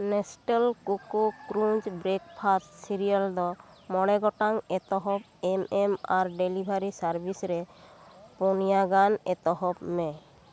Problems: constant background noise, background conversations at intervals